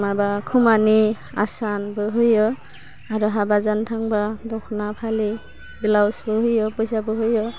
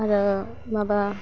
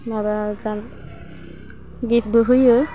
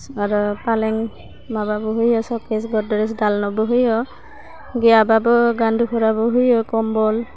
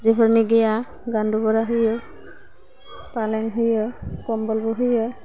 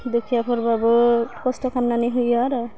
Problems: constant background noise